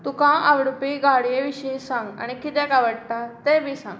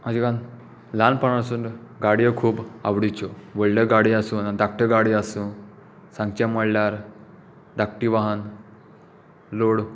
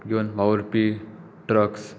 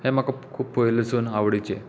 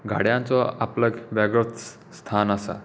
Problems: background sounds at intervals